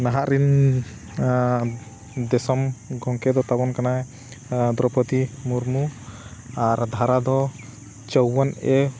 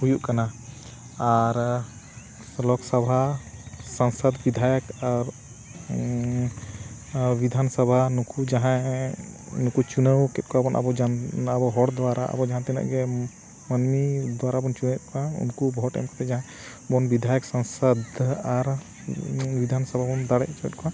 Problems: none marked